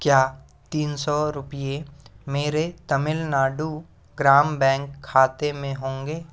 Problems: constant background noise